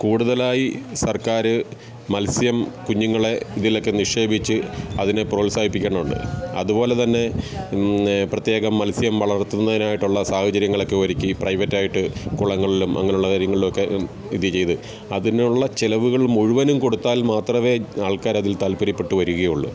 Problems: background sounds at intervals